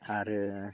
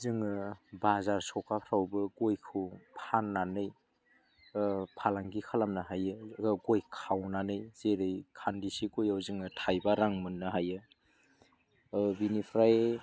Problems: low volume